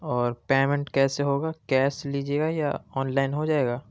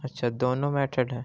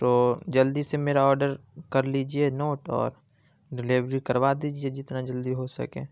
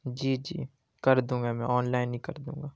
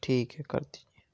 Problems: constant background noise